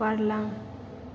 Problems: constant background noise